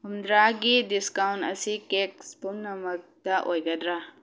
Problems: low volume